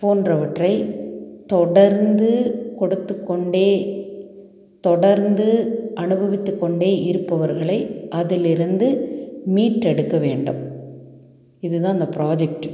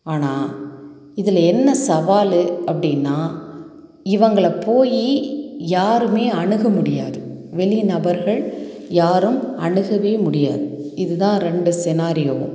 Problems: none marked